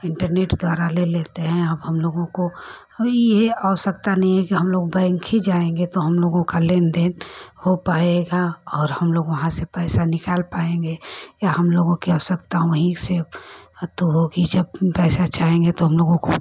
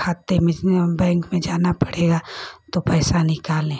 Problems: constant background noise